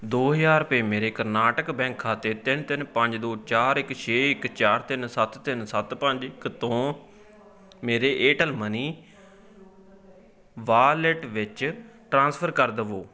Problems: continuous background conversations